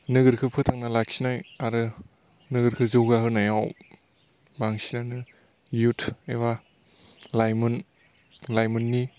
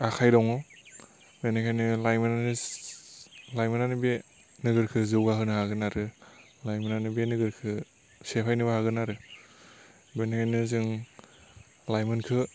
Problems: constant background noise